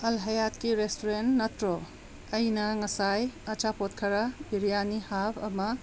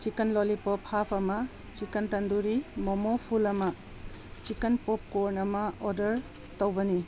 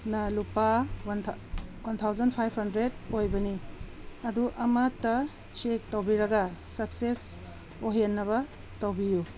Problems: background sounds at intervals